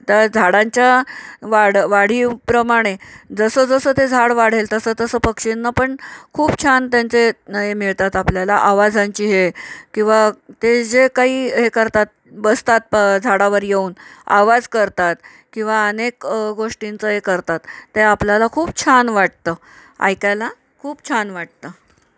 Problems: none marked